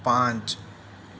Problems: constant background noise